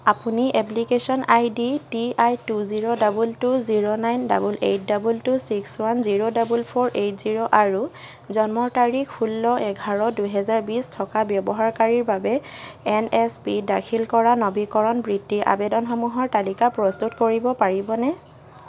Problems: background sounds at intervals